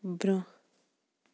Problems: none marked